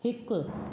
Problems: background sounds at intervals, echo